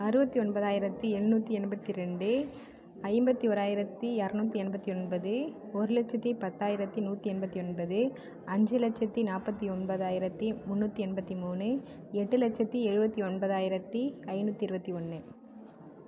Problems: constant background noise